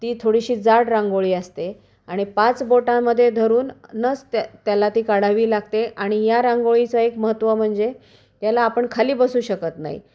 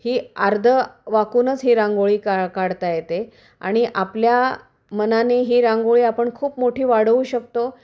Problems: none marked